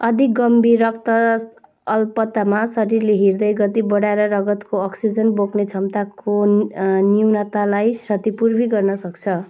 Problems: background sounds at intervals